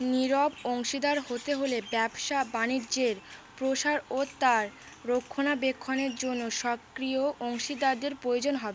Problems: constant background noise